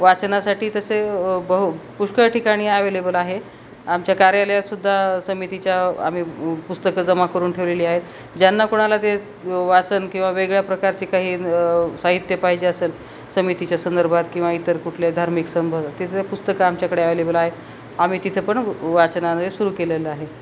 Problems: none marked